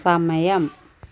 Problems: background sounds at intervals